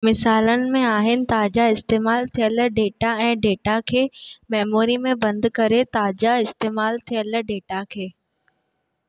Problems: none marked